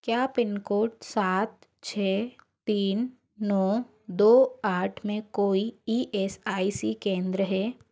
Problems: background sounds at intervals